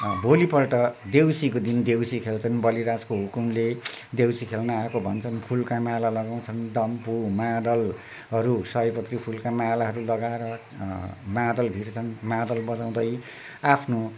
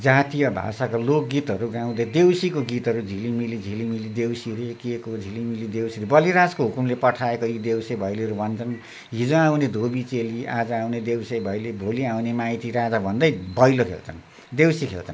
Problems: constant background noise